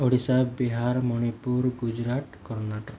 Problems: low volume